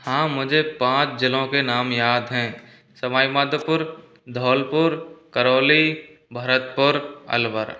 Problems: background sounds at intervals